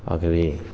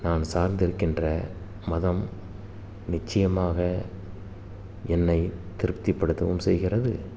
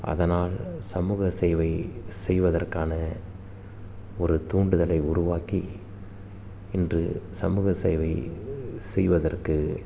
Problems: constant background noise